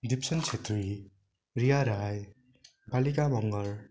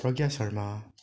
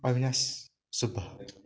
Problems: continuous background conversations